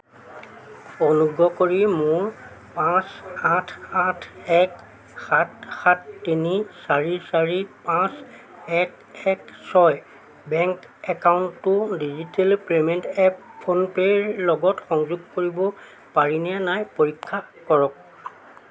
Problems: none marked